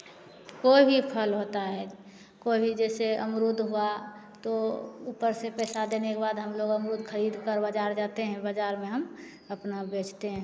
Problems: none marked